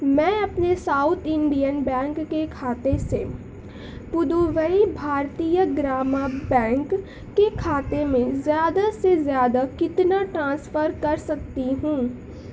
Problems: constant background noise